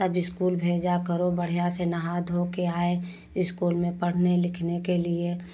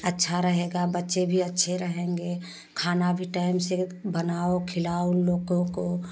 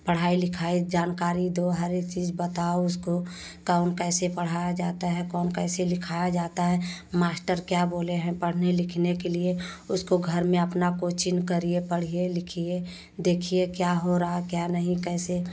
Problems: constant background noise